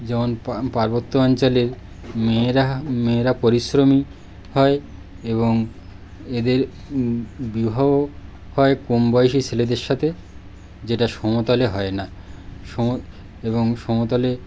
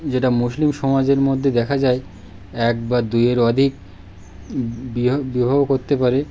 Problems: none marked